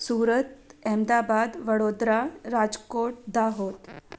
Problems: none marked